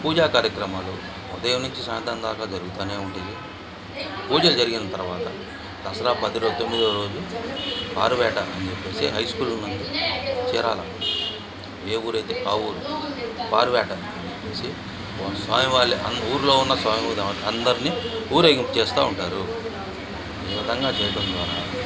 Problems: constant background noise